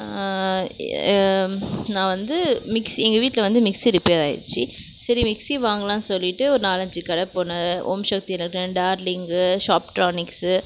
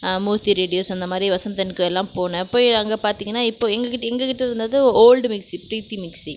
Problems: none marked